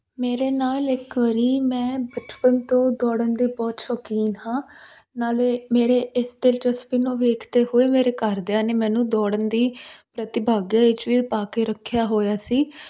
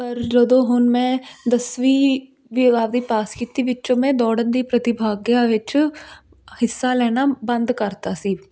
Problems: constant background noise